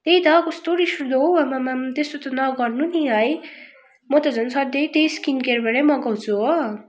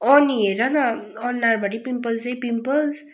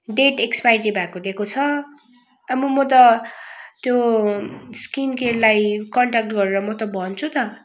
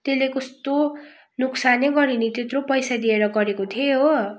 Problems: background sounds at intervals